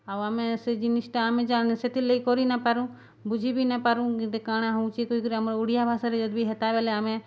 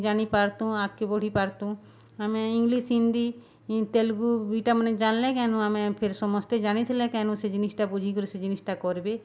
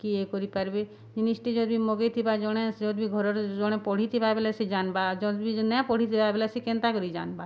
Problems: none marked